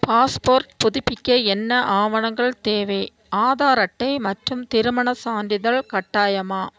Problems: none marked